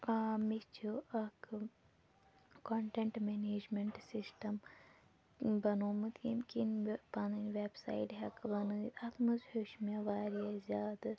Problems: background conversations at intervals, low volume